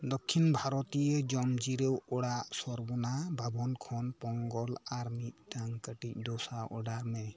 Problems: background sounds at intervals